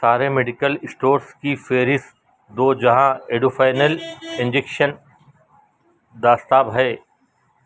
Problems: constant background noise, background conversations at intervals